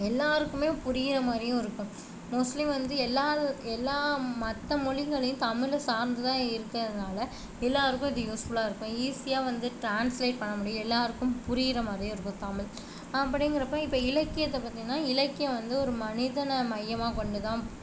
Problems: constant background noise